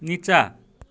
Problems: none marked